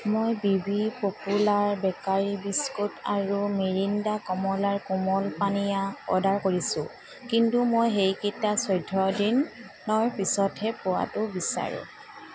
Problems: constant background noise, background conversations at intervals